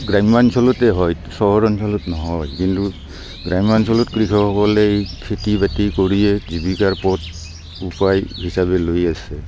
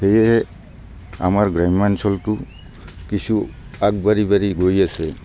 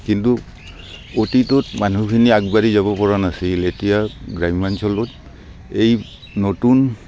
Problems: constant background noise, background conversations at intervals